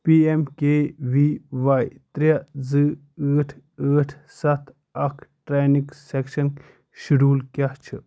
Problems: none marked